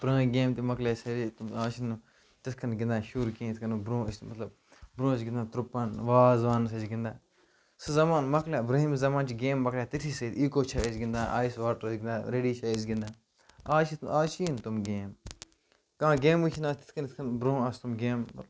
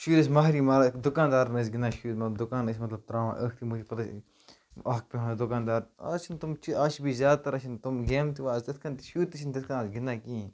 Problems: background sounds at intervals, low volume